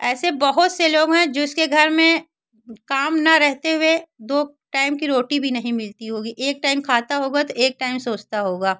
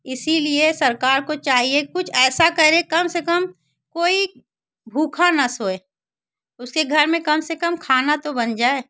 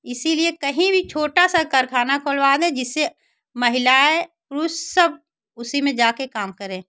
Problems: constant background noise, background conversations at intervals